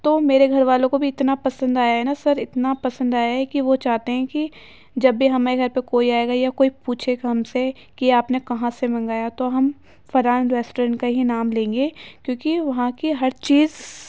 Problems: none marked